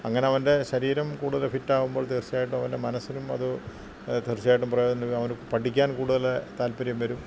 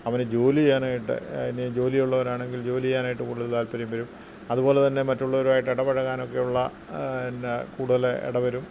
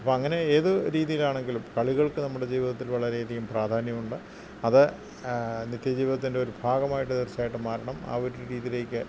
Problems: constant background noise, low volume